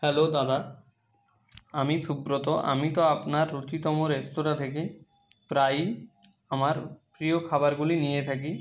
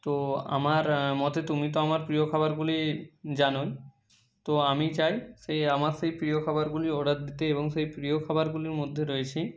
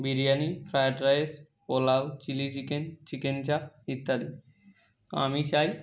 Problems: none marked